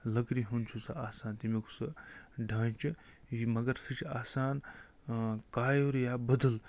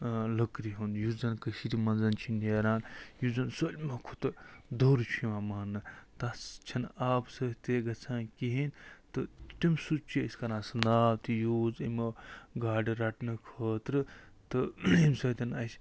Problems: none marked